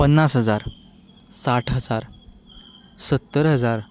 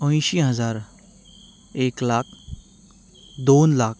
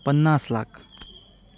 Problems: none marked